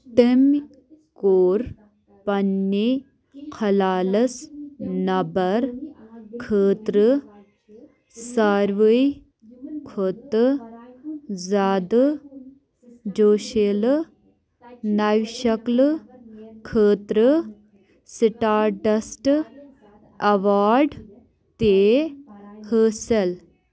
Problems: background sounds at intervals